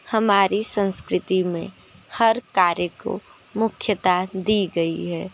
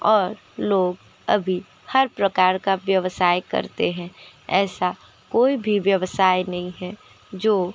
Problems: constant background noise, continuous background conversations